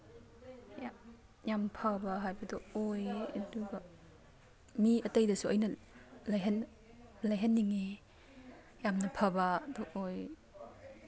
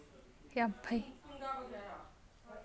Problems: background sounds at intervals, background conversations at intervals